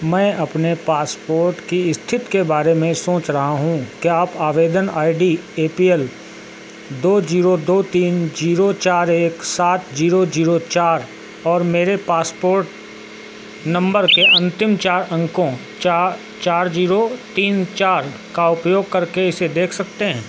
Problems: none marked